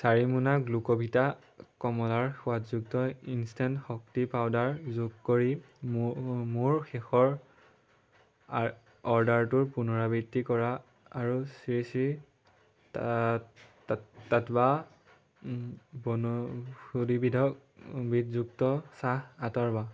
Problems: none marked